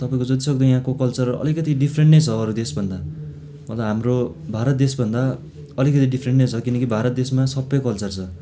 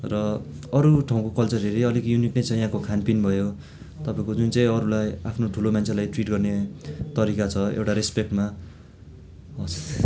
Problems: background sounds at intervals